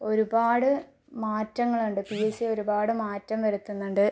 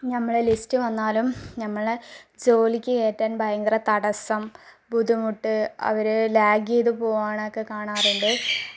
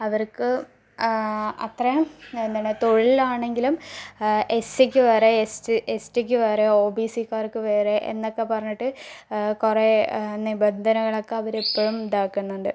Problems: none marked